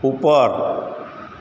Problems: constant background noise, echo